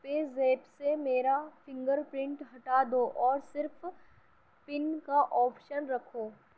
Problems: background sounds at intervals, low volume